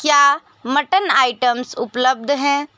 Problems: constant background noise